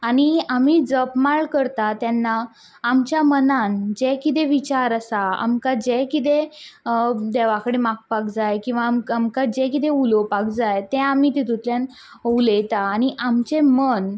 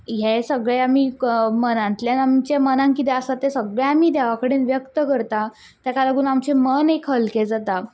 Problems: background sounds at intervals